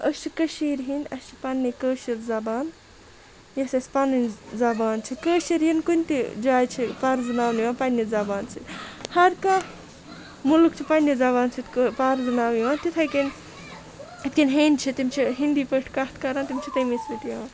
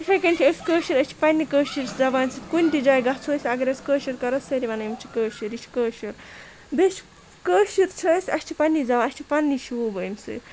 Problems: constant background noise, continuous background conversations